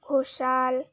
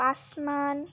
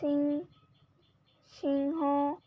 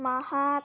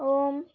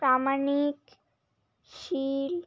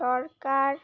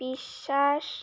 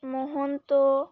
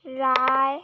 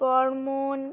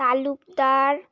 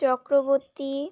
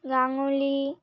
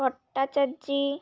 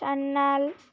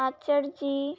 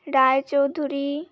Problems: constant background noise